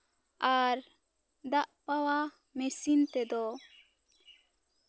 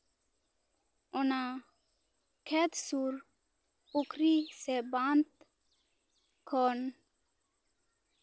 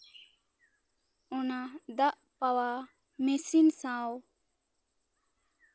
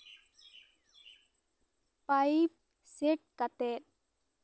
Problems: background sounds at intervals, background conversations at intervals